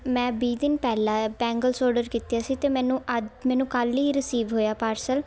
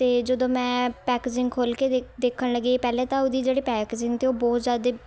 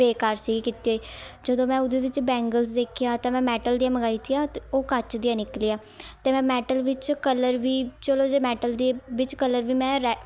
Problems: continuous background conversations